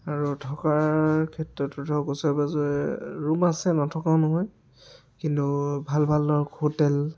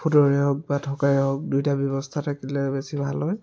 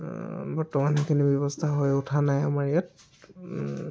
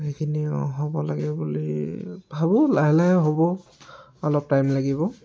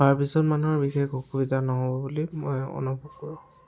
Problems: background sounds at intervals, background conversations at intervals